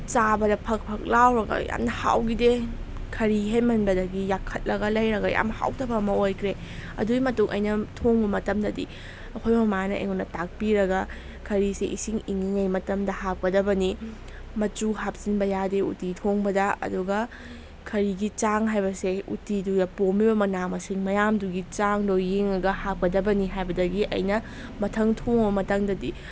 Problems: constant background noise